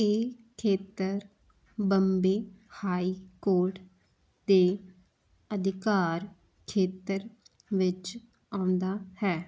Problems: none marked